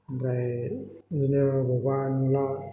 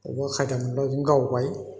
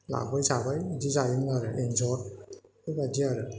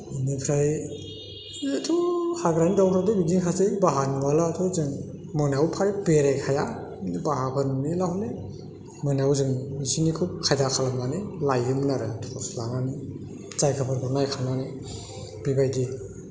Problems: constant background noise